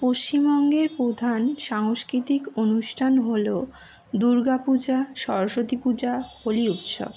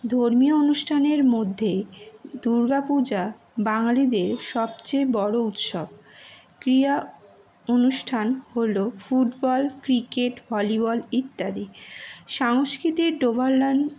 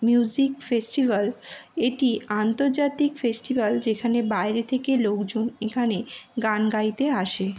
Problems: constant background noise